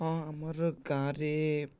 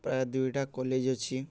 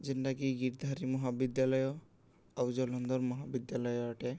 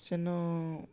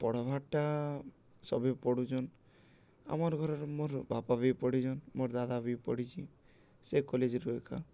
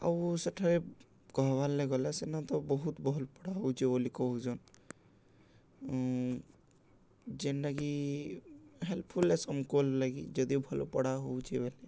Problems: none marked